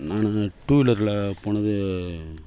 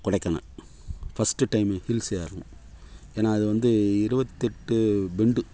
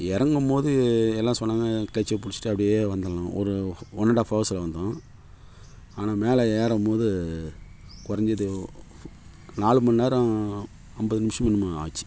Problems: none marked